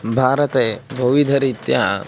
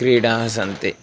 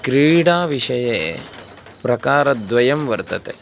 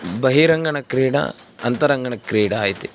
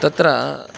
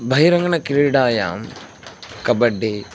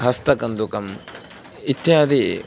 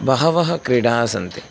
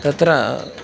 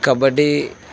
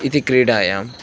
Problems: constant background noise